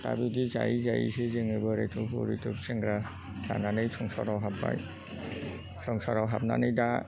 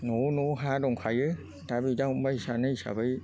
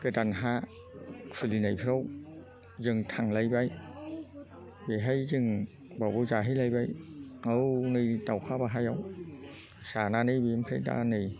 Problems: constant background noise